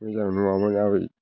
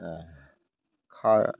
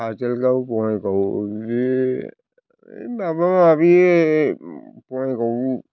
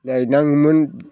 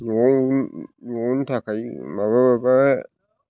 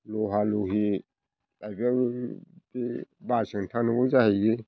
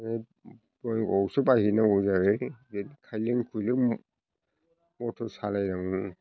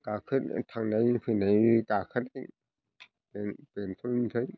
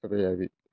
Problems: constant background noise